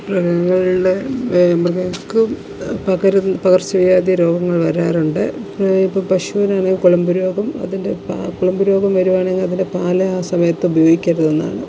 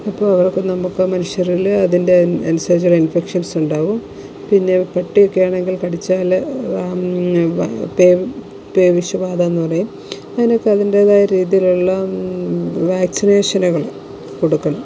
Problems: none marked